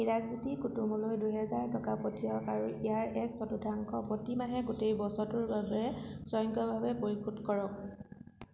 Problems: none marked